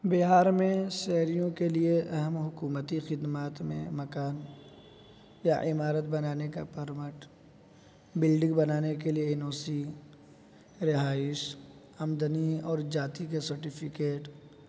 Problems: constant background noise